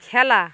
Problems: constant background noise